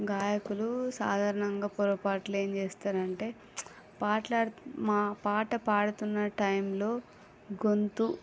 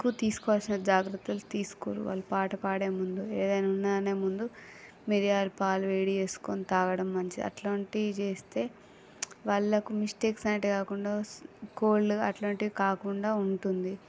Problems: background conversations at intervals, low volume